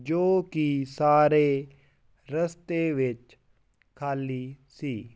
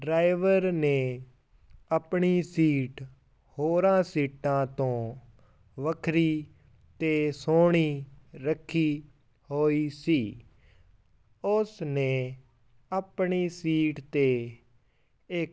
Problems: background sounds at intervals